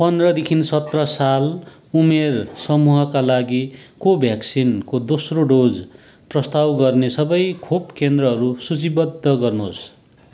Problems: background sounds at intervals